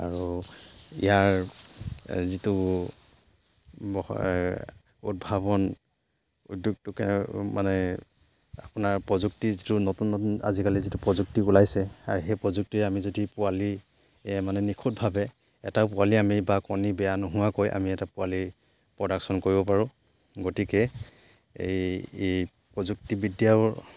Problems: background sounds at intervals